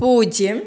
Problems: none marked